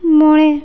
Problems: none marked